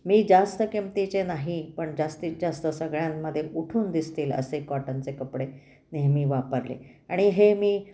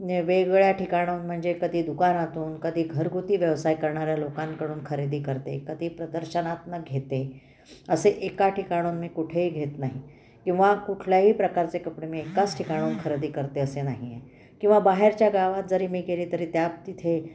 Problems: background sounds at intervals